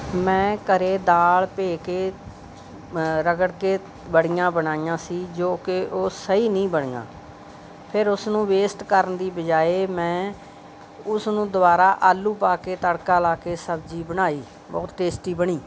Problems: background sounds at intervals